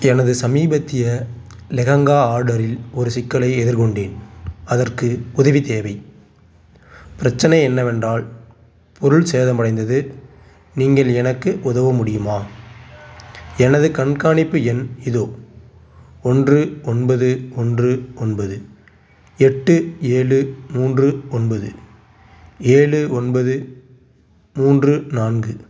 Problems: constant background noise